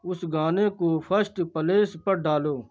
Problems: constant background noise